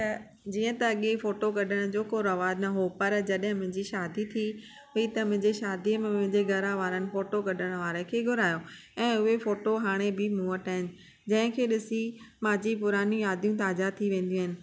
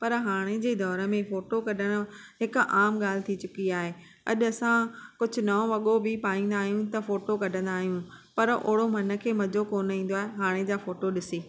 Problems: none marked